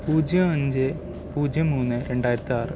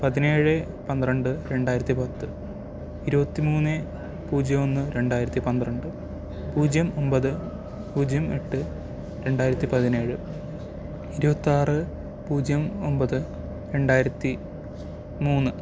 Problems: none marked